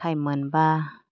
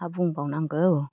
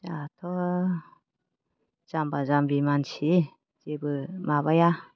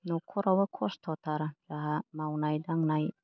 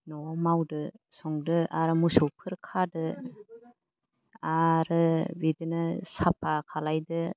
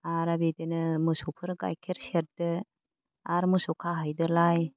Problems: low volume